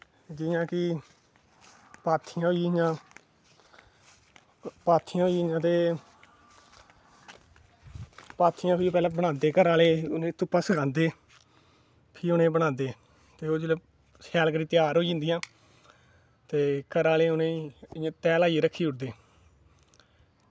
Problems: none marked